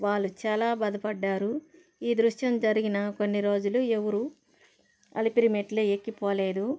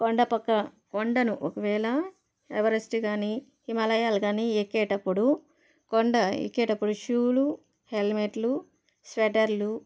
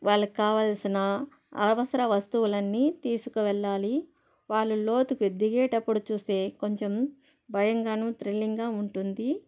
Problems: constant background noise